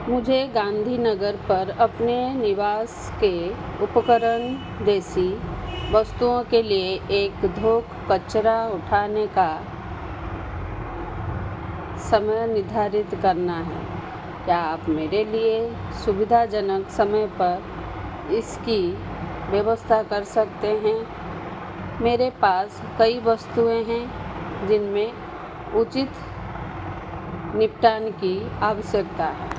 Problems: constant background noise